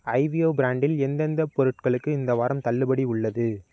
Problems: constant background noise